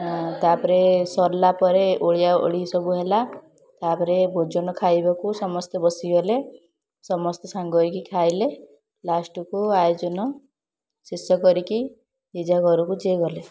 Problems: constant background noise, continuous background conversations